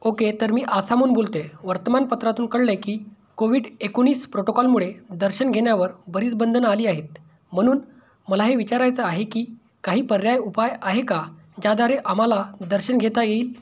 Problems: none marked